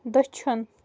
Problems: background sounds at intervals